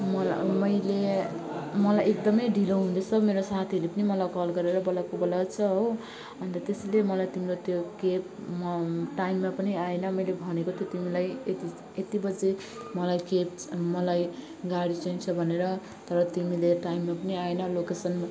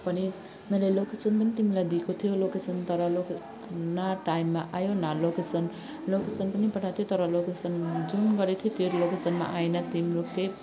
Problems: constant background noise, continuous background conversations